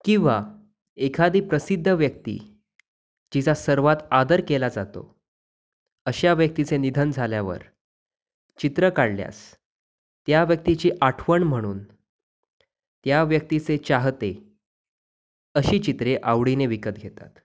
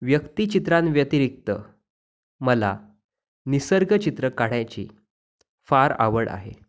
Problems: background sounds at intervals